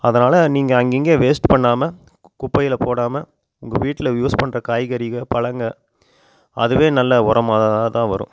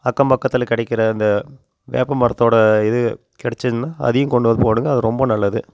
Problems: none marked